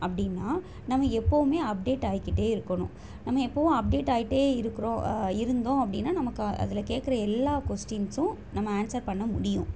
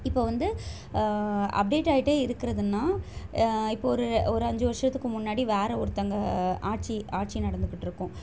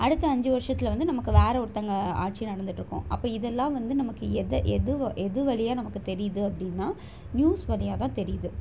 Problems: constant background noise